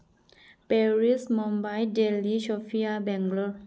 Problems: low volume